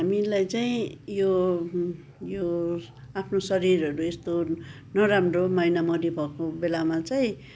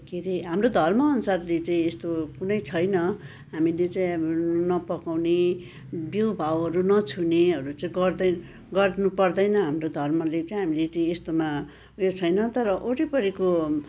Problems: continuous background conversations